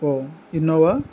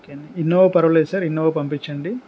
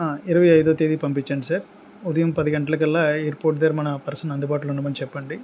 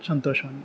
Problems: constant background noise